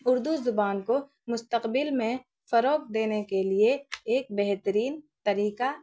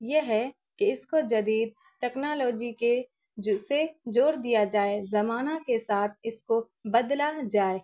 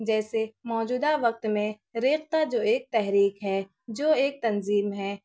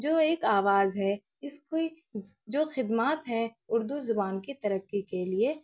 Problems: none marked